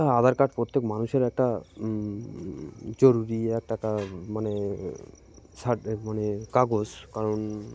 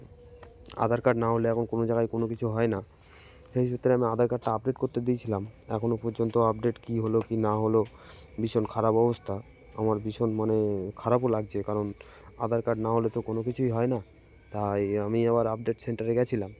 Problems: constant background noise